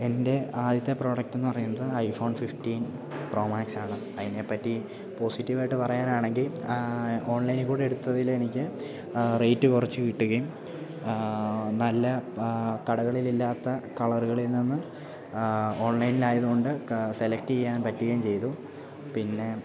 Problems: constant background noise